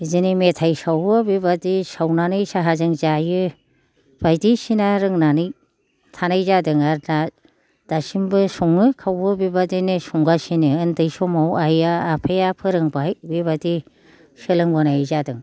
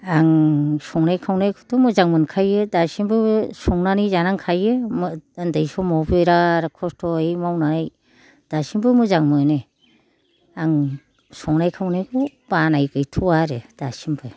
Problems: low volume